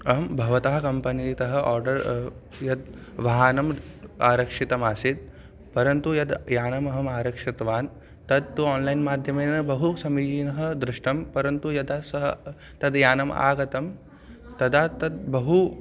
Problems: constant background noise